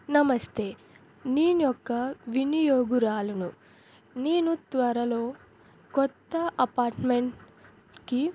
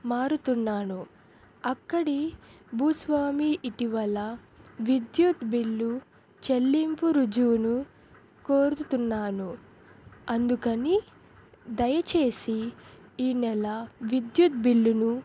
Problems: none marked